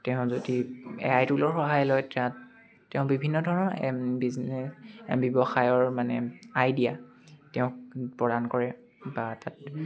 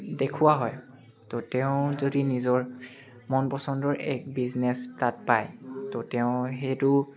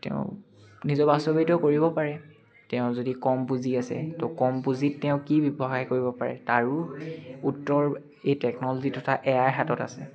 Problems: none marked